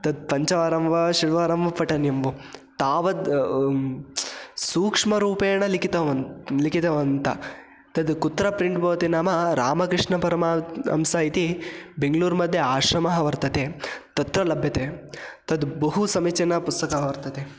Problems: constant background noise